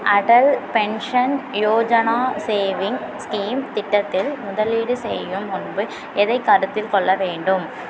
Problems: none marked